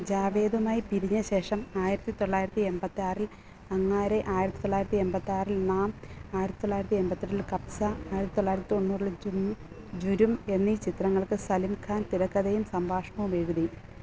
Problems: none marked